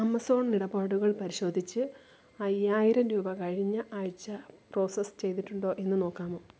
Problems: constant background noise